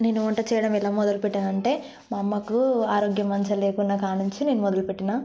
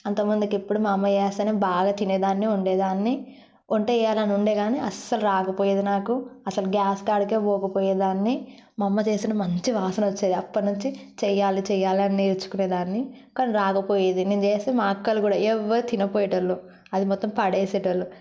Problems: background sounds at intervals